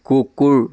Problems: continuous background conversations